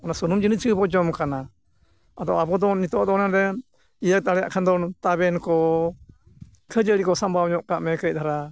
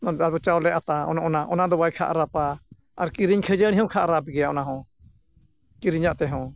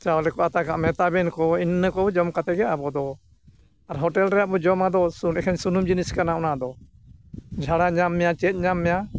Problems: none marked